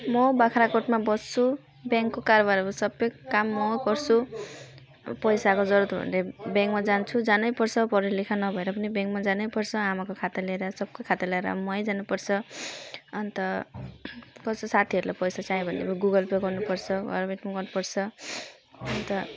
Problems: none marked